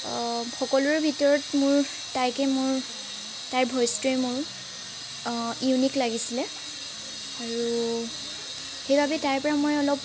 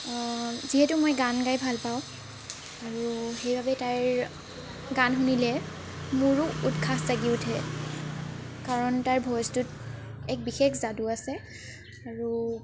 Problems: constant background noise